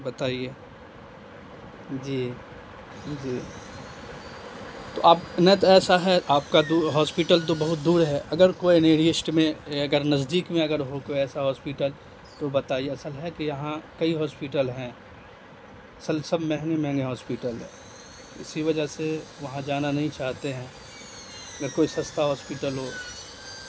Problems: constant background noise